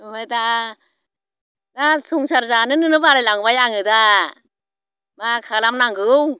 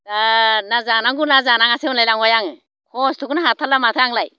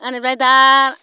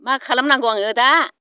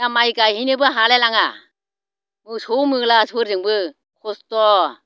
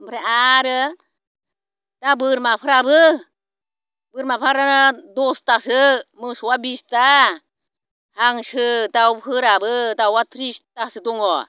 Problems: none marked